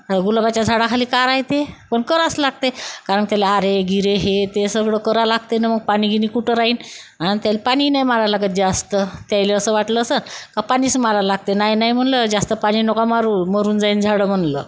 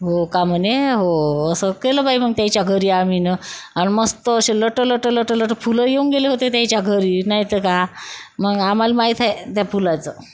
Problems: none marked